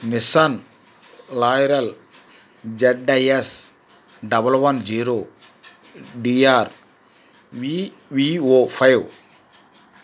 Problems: none marked